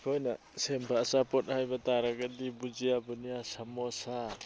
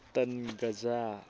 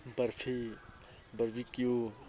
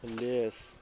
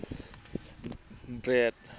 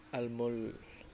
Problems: background sounds at intervals